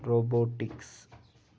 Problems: background sounds at intervals